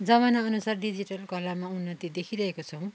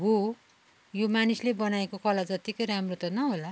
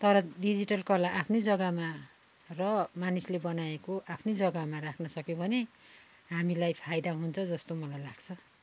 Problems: background sounds at intervals